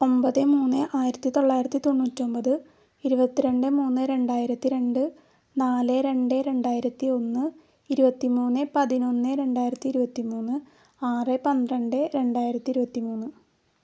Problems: none marked